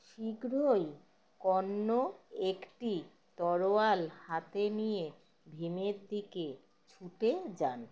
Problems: none marked